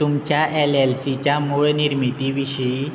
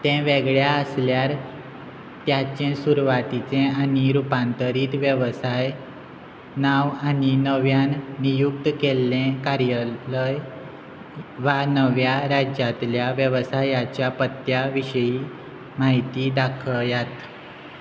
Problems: constant background noise